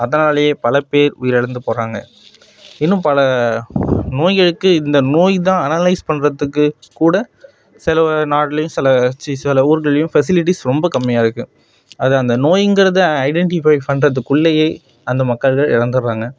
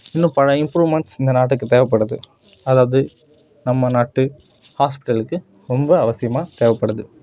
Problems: constant background noise, background conversations at intervals